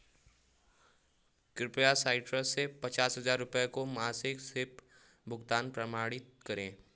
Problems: background sounds at intervals